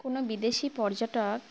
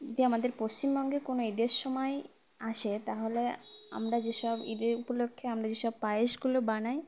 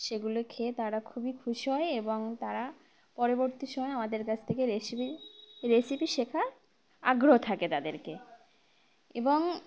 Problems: constant background noise, background conversations at intervals